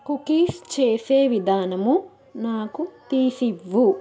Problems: continuous background conversations